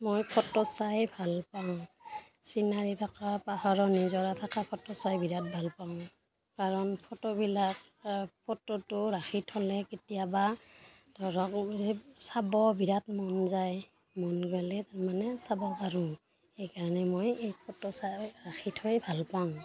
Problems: background sounds at intervals, continuous background conversations